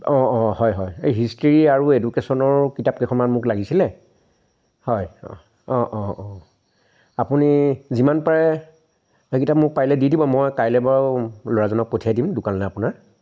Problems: none marked